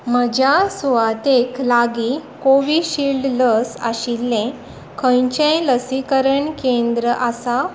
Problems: none marked